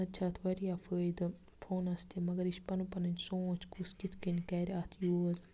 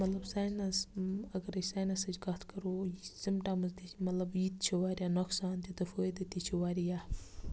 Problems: background sounds at intervals